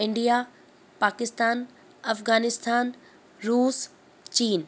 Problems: constant background noise